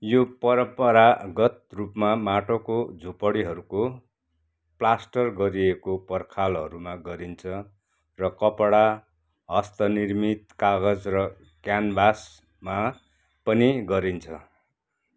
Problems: none marked